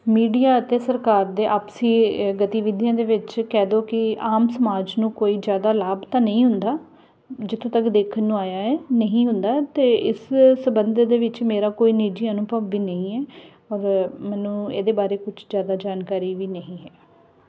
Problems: background sounds at intervals